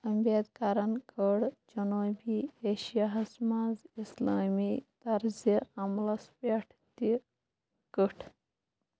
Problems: constant background noise